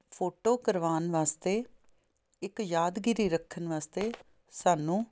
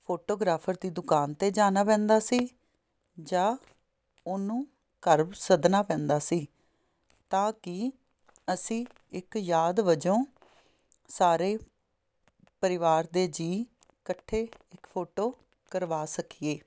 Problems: none marked